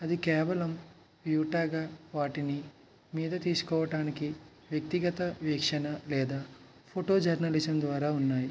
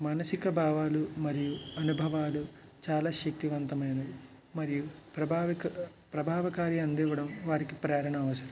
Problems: none marked